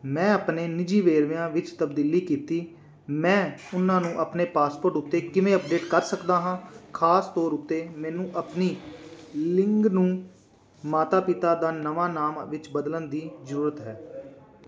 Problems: none marked